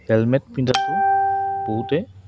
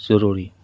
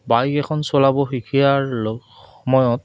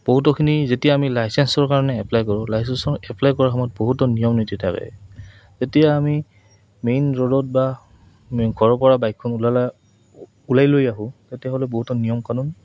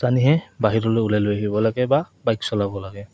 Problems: background sounds at intervals